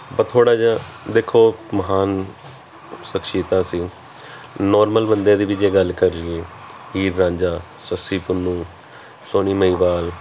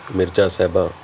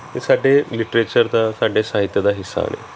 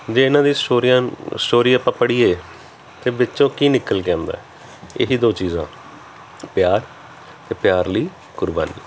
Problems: background sounds at intervals